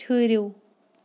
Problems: background sounds at intervals